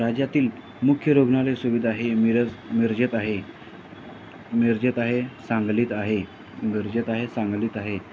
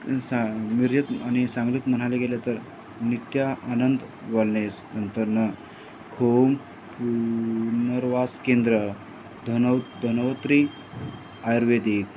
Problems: constant background noise